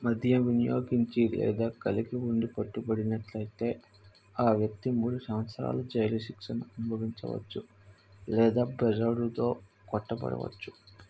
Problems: low volume